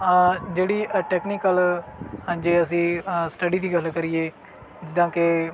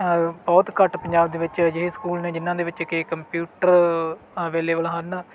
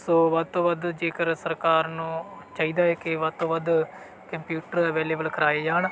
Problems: none marked